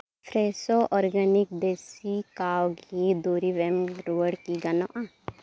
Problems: none marked